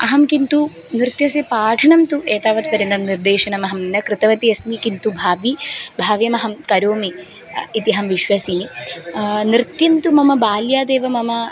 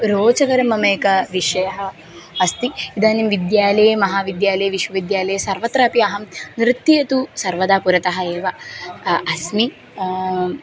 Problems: background sounds at intervals